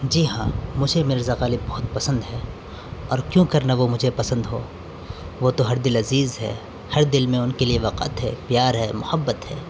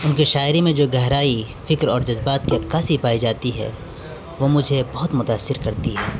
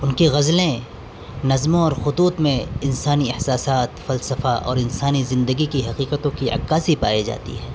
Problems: background sounds at intervals